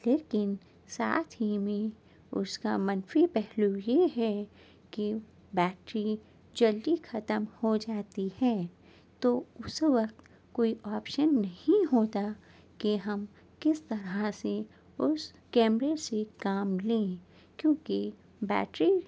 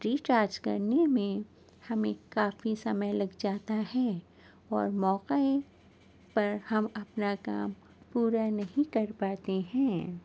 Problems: none marked